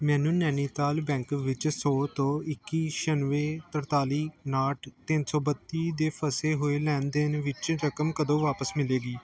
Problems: background conversations at intervals